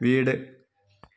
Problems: low volume